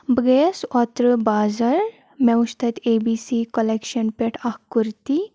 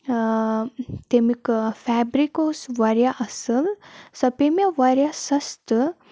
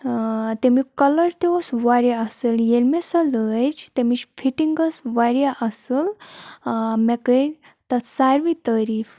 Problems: background sounds at intervals